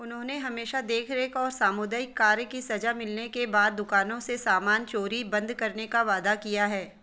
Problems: none marked